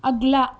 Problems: background sounds at intervals